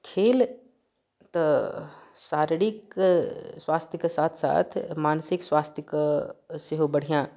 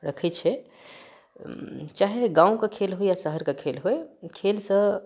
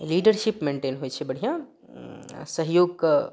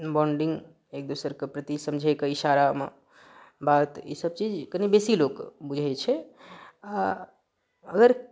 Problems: none marked